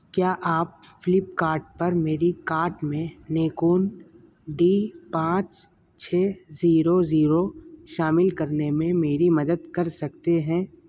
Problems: constant background noise